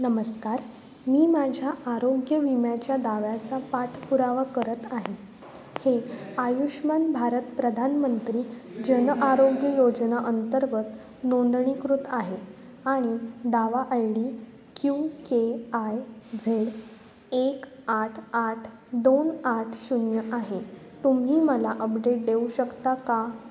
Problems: constant background noise, background conversations at intervals